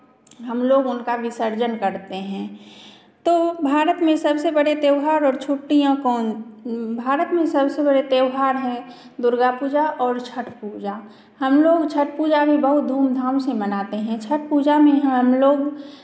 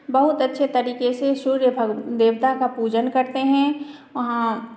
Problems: none marked